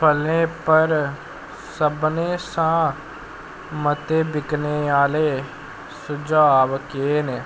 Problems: constant background noise